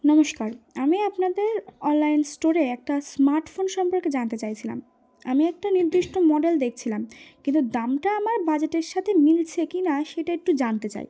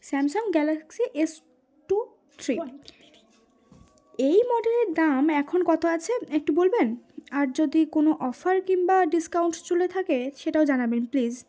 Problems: background sounds at intervals